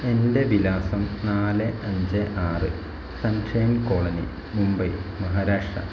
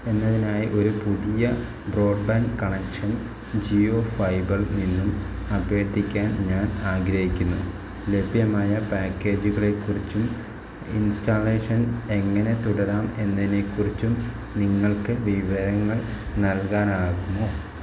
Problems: low volume